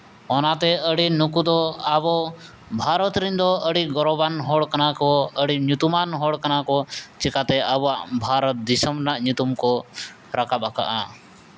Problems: none marked